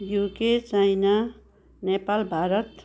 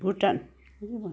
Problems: background sounds at intervals, background conversations at intervals